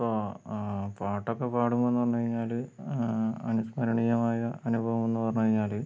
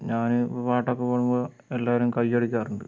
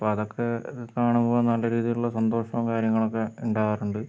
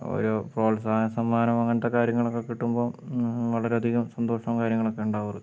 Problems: none marked